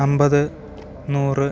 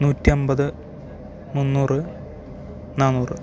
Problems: constant background noise